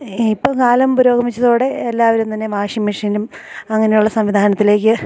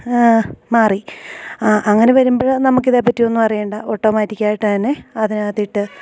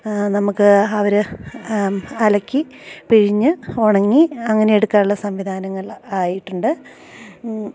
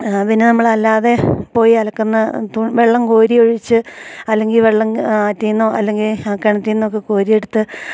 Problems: low volume